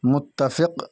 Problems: background sounds at intervals